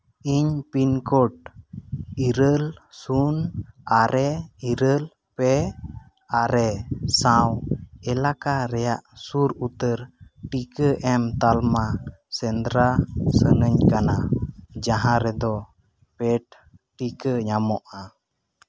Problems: background sounds at intervals